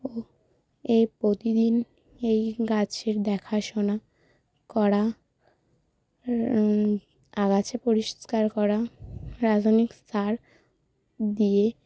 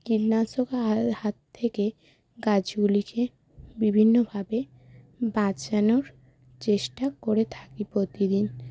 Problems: constant background noise